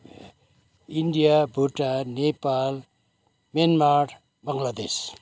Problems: none marked